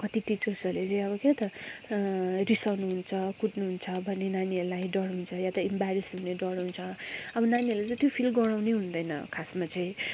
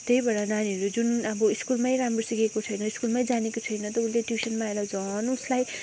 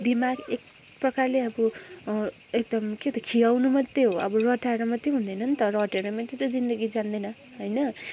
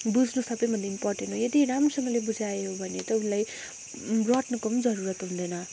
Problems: constant background noise